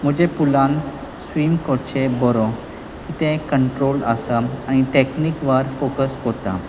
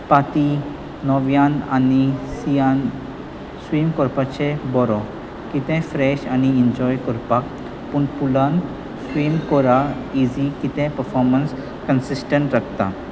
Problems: constant background noise